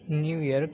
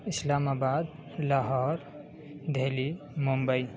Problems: constant background noise, low volume